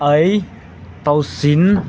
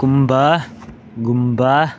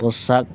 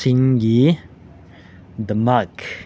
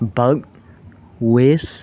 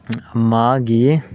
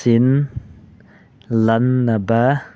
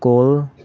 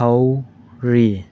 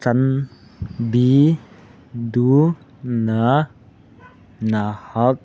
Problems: background sounds at intervals